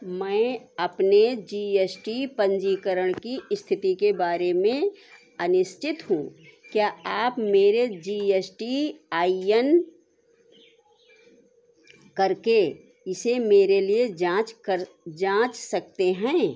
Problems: constant background noise